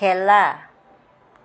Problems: background conversations at intervals